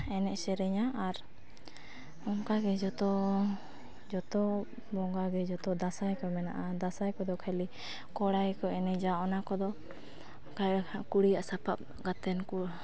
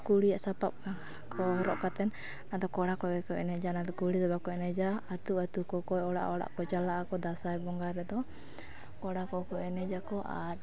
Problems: background conversations at intervals